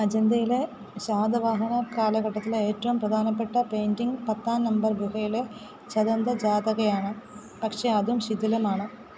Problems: none marked